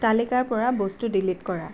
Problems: constant background noise